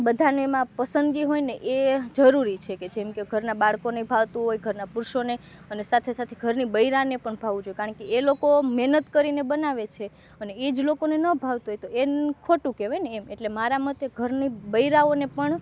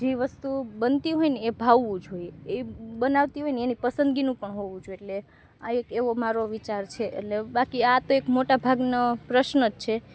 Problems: background sounds at intervals